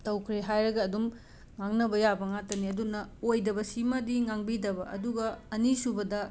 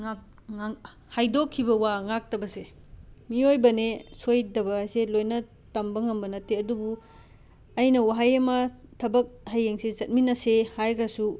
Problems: background sounds at intervals